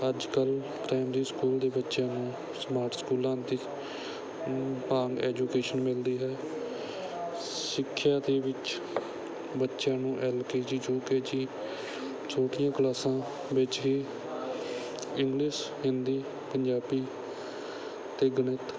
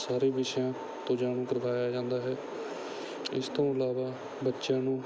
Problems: background sounds at intervals